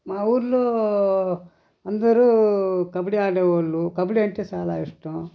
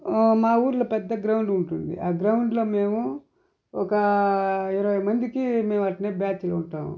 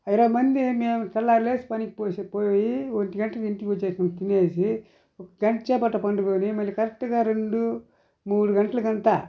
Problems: none marked